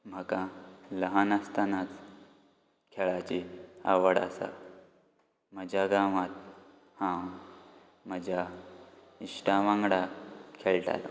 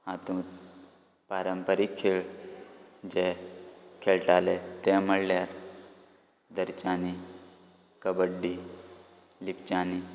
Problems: background sounds at intervals